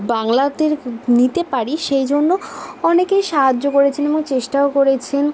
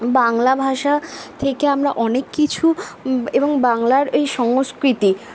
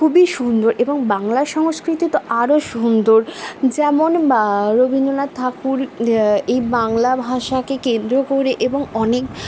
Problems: constant background noise, background conversations at intervals